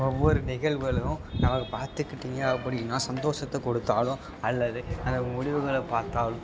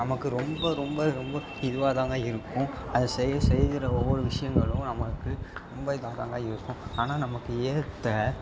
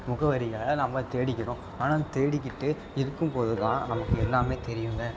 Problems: background sounds at intervals, background conversations at intervals